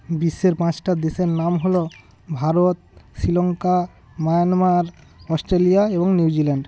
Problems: constant background noise